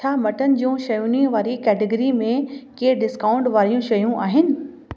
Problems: constant background noise, echo